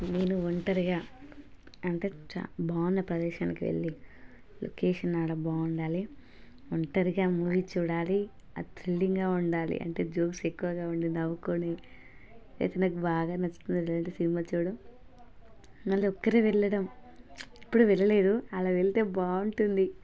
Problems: continuous background conversations